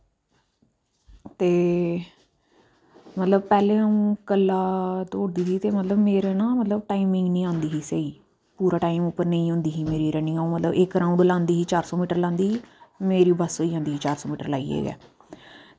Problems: low volume